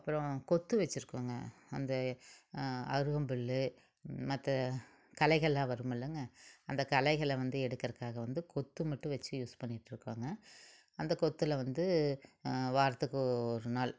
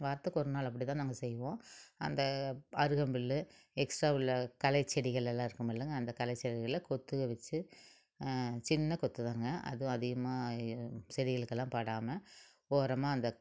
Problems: none marked